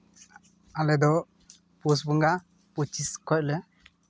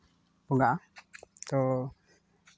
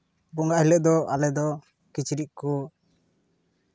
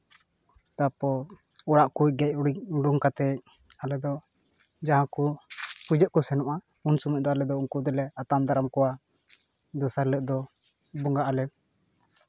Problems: none marked